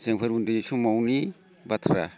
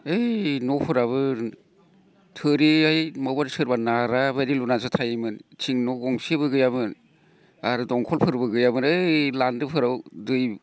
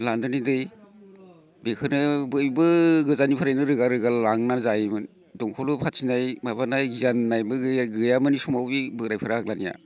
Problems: none marked